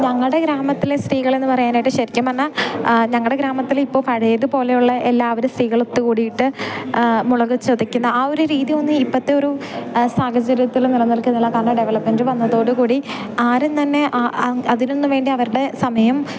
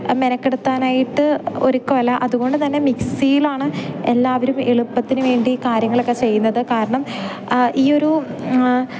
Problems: background sounds at intervals